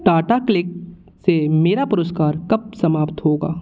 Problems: background sounds at intervals